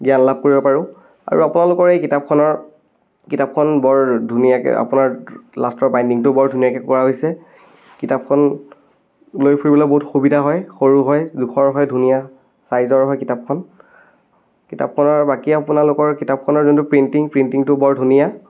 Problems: none marked